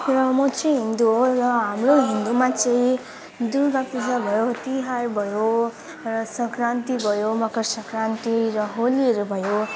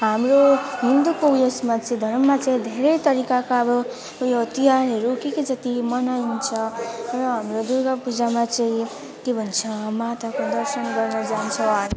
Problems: constant background noise, background conversations at intervals